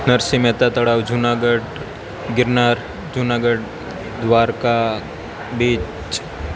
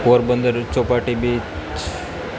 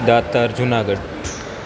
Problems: constant background noise